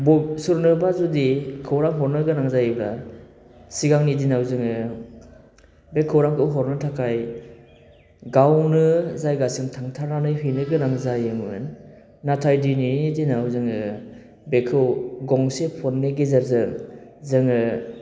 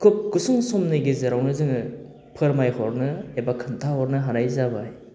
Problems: constant background noise